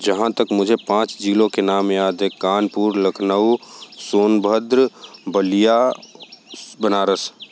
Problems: constant background noise